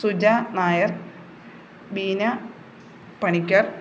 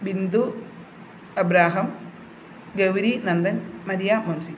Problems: constant background noise